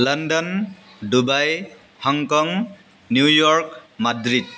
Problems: constant background noise